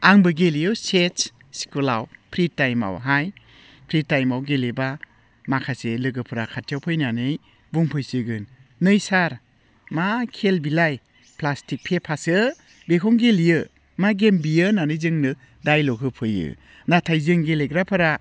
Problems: none marked